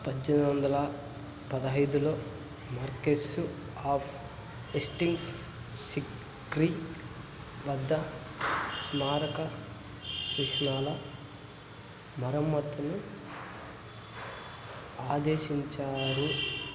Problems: low volume